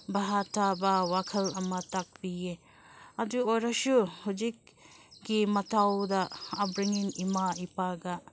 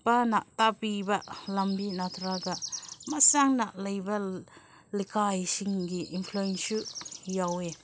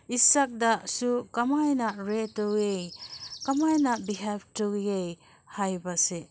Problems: none marked